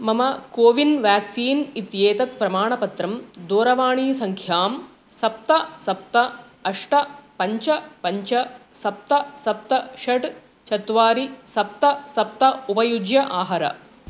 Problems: constant background noise